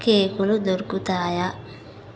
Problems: constant background noise